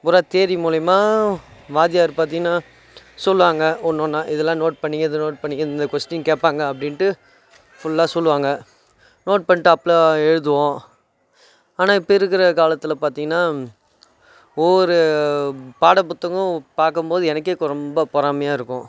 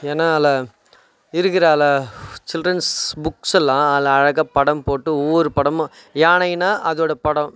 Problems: background sounds at intervals